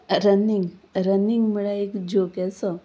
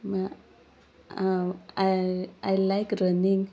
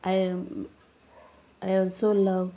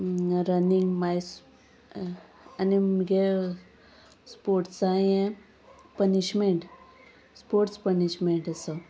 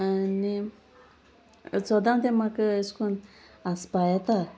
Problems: none marked